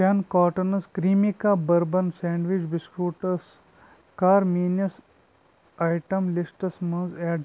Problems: constant background noise